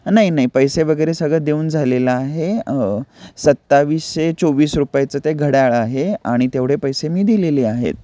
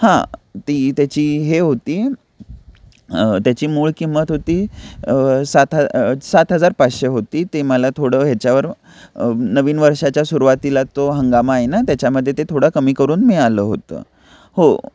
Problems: none marked